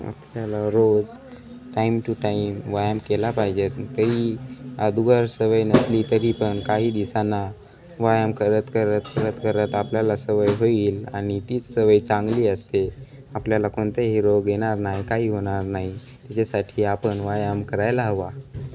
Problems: background sounds at intervals